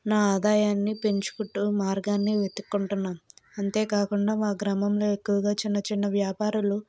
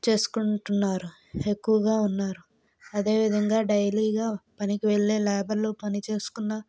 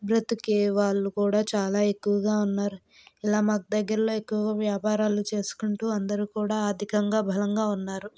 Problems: none marked